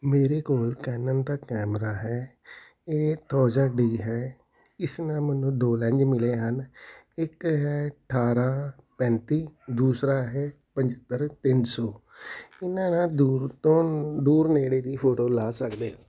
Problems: background sounds at intervals